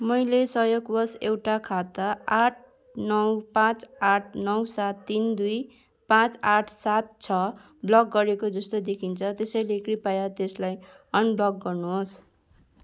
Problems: none marked